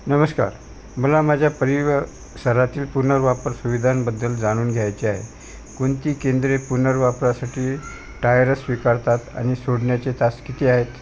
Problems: constant background noise